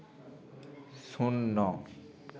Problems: continuous background conversations